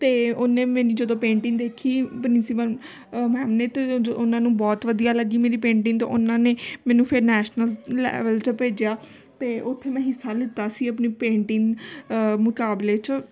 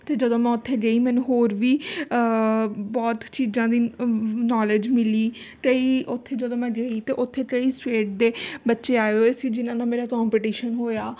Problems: constant background noise